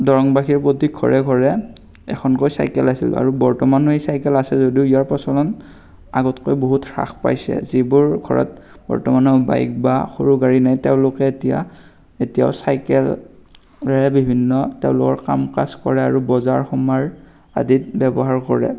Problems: none marked